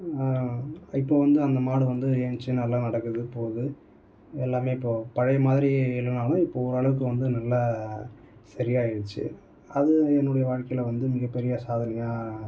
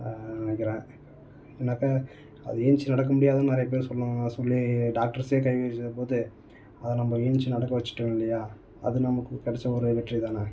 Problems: none marked